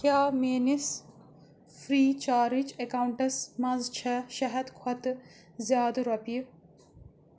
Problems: constant background noise